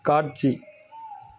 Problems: background conversations at intervals